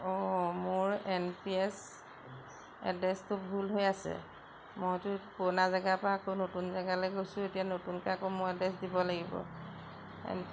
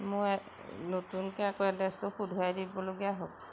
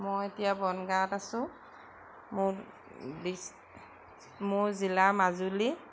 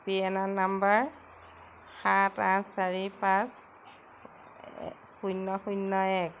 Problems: constant background noise